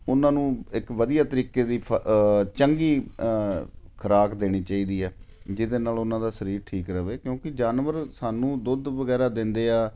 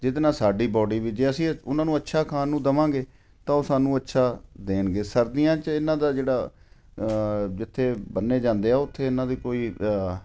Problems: none marked